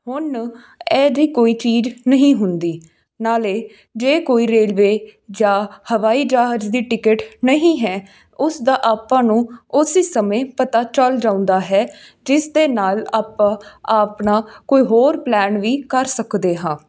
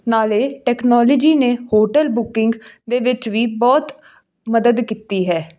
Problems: background sounds at intervals